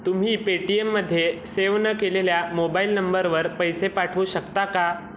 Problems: constant background noise